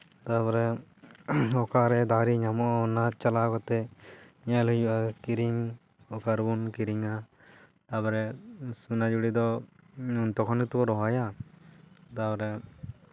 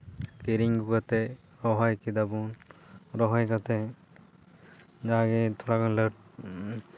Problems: background sounds at intervals